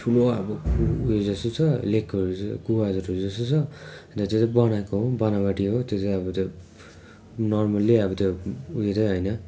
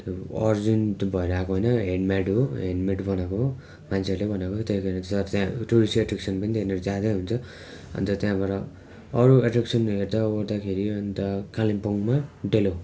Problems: constant background noise